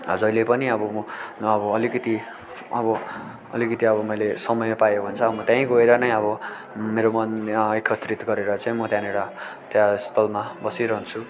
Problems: constant background noise, continuous background conversations